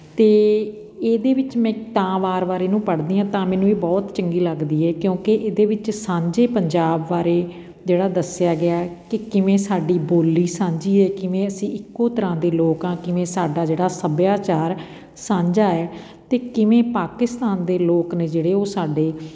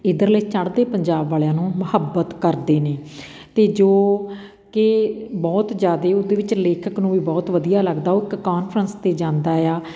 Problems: background conversations at intervals